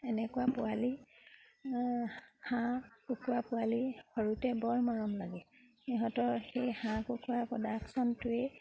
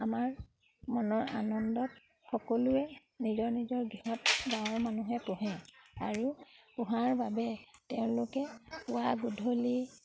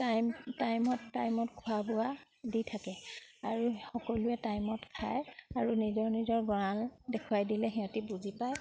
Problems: constant background noise